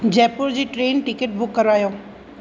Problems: constant background noise